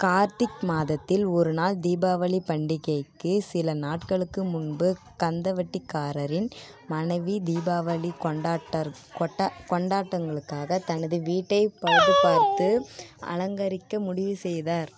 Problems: background sounds at intervals